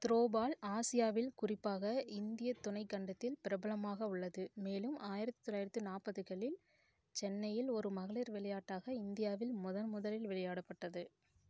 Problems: low volume